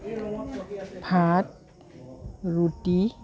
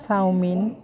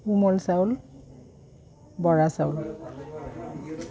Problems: background sounds at intervals